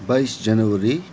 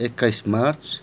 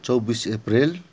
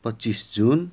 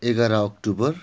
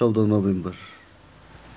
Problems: constant background noise